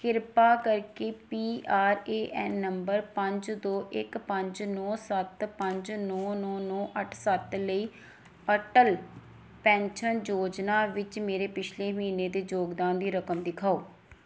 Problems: background sounds at intervals